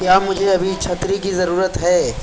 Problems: constant background noise